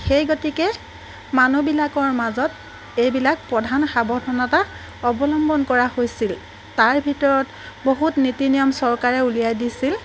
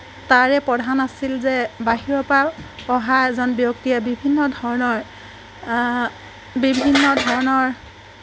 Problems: constant background noise